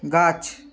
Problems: continuous background conversations